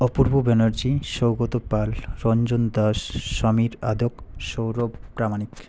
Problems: none marked